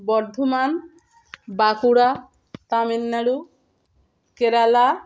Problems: none marked